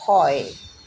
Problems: constant background noise